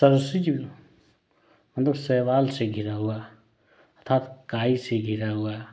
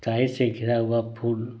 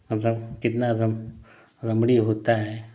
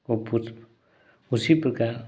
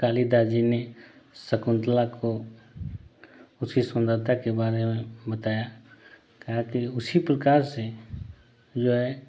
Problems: constant background noise